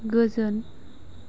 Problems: constant background noise